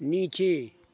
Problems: constant background noise